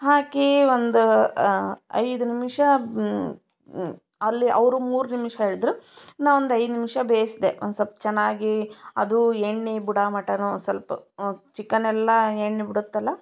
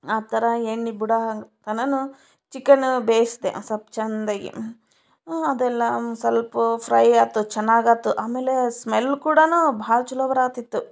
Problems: none marked